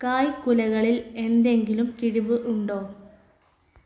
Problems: background sounds at intervals